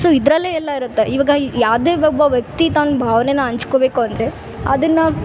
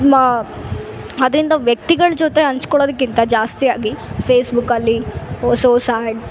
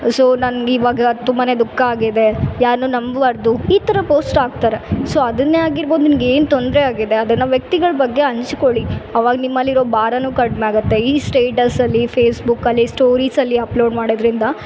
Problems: background sounds at intervals